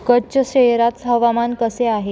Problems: constant background noise, continuous background conversations